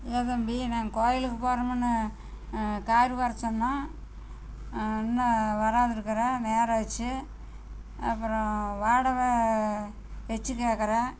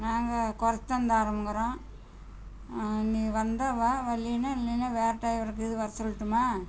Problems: constant background noise